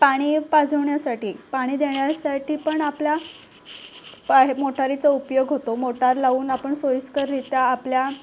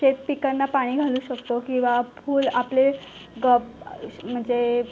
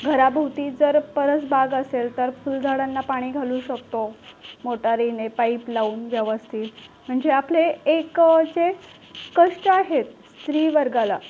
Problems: constant background noise, background conversations at intervals